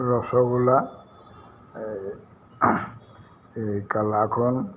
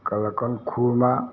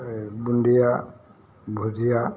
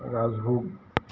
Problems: constant background noise